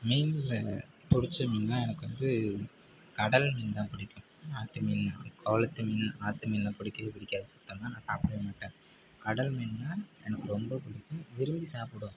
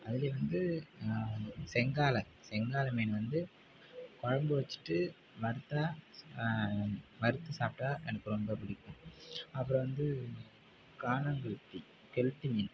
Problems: none marked